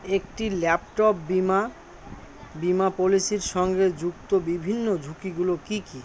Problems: constant background noise